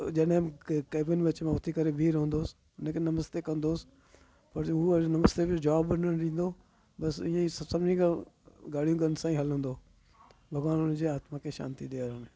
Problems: constant background noise